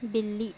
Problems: background sounds at intervals